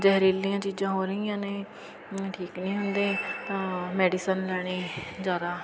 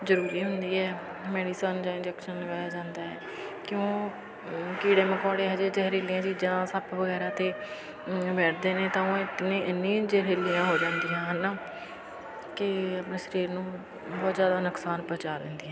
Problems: continuous background conversations